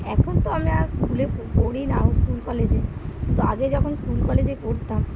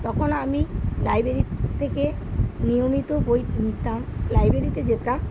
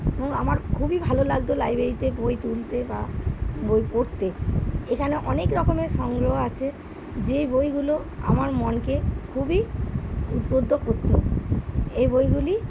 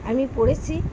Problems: background sounds at intervals